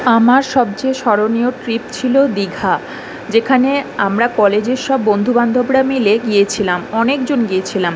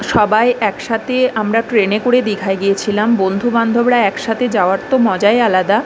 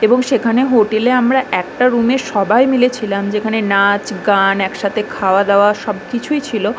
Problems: constant background noise